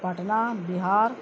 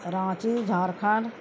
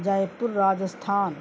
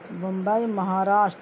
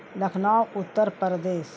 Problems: constant background noise